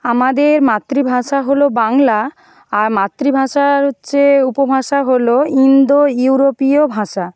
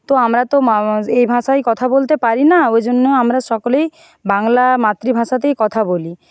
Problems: background sounds at intervals